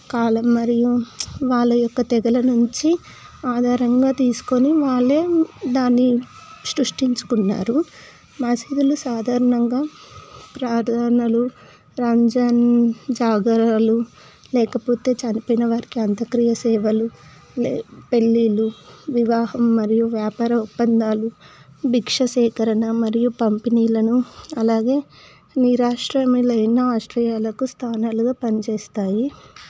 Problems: background conversations at intervals